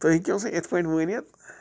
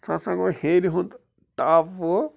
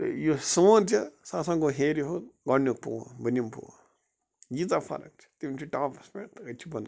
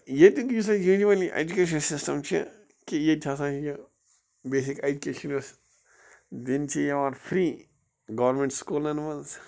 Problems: constant background noise